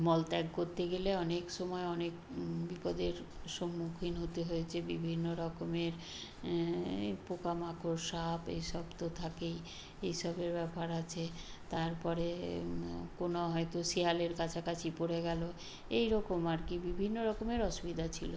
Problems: none marked